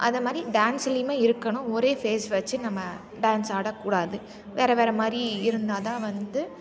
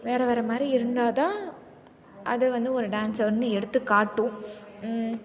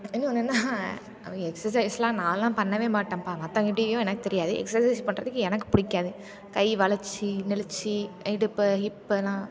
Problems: background sounds at intervals